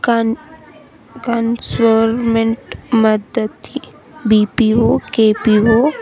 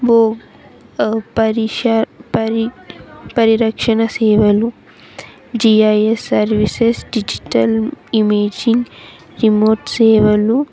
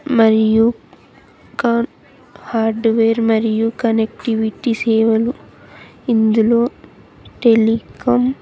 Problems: continuous background conversations